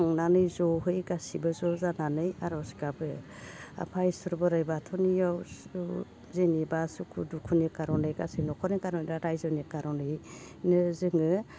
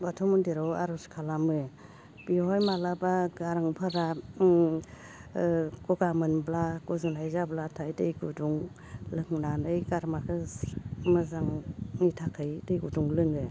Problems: constant background noise